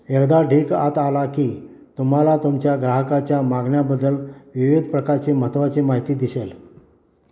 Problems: background sounds at intervals